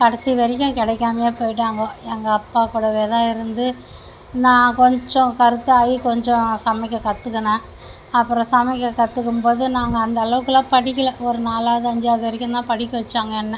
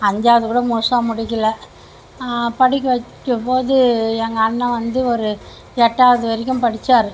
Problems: constant background noise